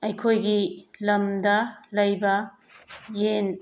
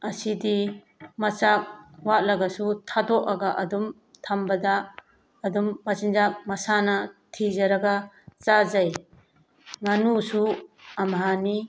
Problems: background sounds at intervals